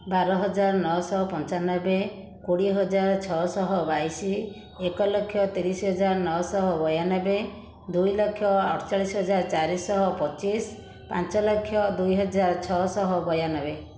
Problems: constant background noise, continuous background conversations